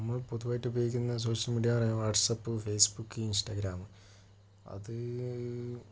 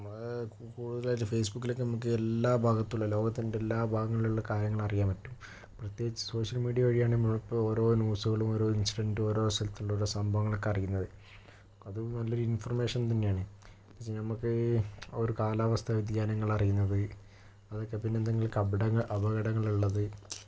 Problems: none marked